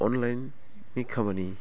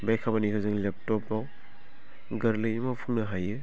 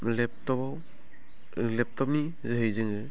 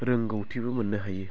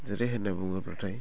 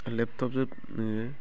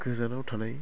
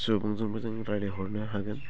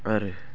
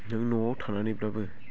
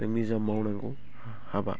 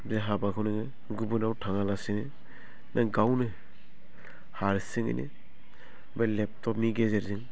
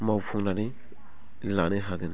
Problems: low volume